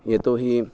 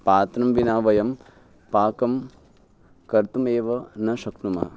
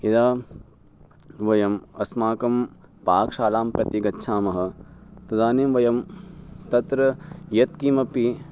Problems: none marked